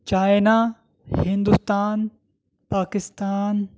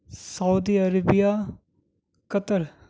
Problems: none marked